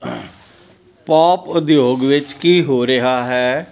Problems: none marked